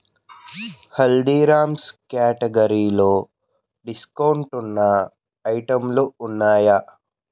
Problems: background sounds at intervals